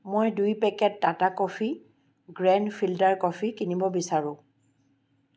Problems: constant background noise